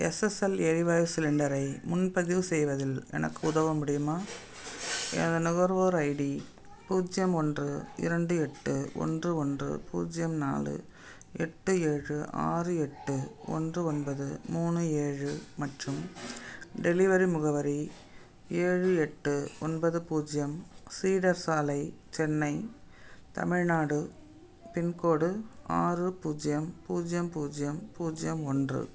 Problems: none marked